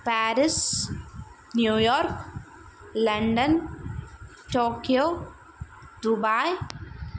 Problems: background sounds at intervals